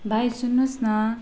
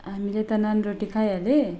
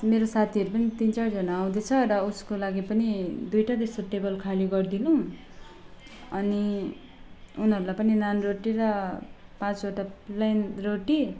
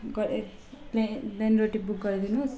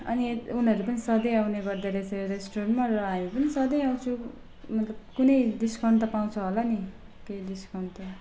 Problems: background sounds at intervals, low volume